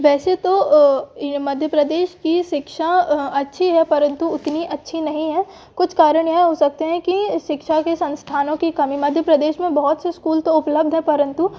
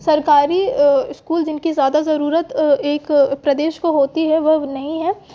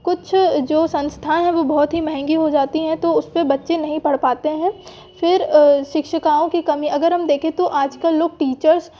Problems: none marked